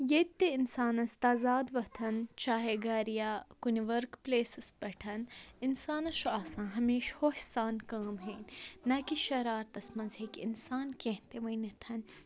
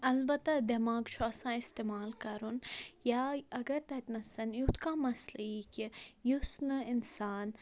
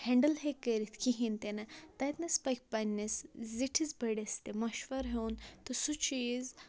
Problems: background conversations at intervals